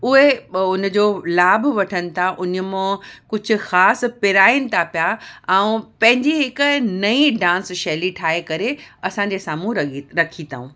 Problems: none marked